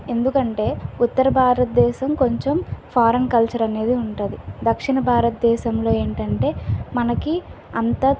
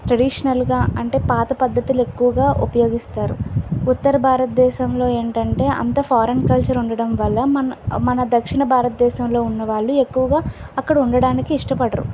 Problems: constant background noise